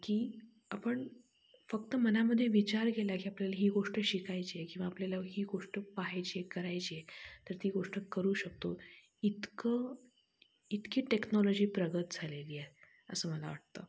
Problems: none marked